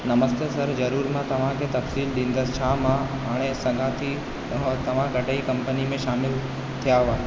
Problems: constant background noise, echo, low volume